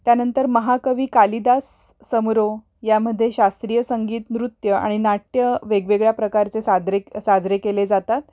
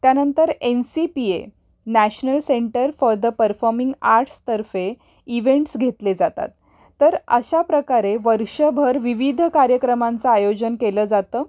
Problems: constant background noise